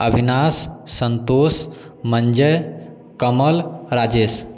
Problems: none marked